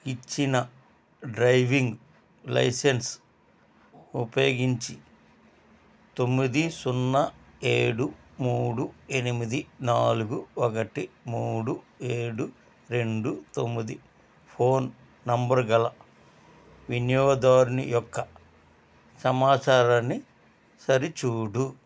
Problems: none marked